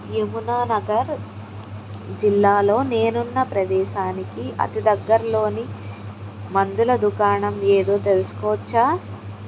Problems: none marked